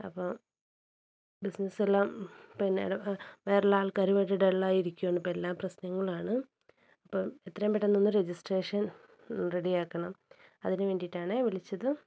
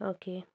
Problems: low volume